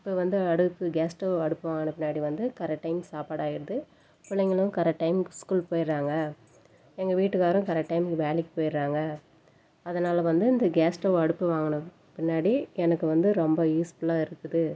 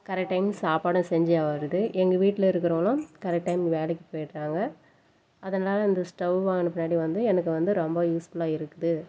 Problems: background sounds at intervals